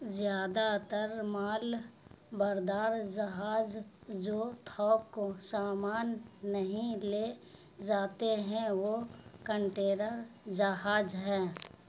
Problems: none marked